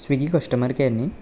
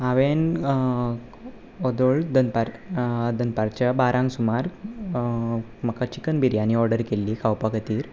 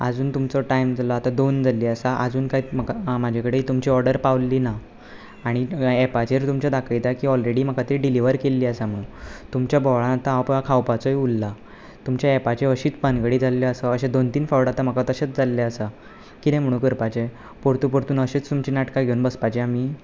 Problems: none marked